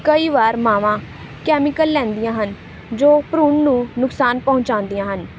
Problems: none marked